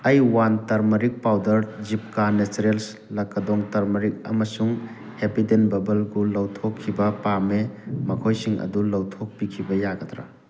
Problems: constant background noise